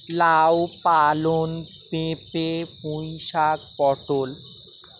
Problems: constant background noise